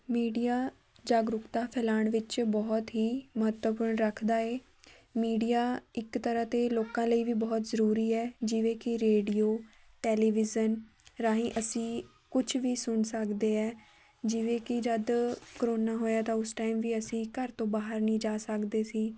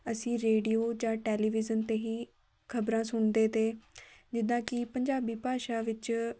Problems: background sounds at intervals, background conversations at intervals